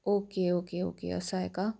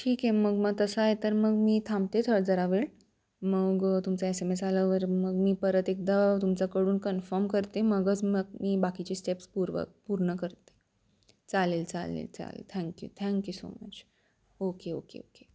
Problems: constant background noise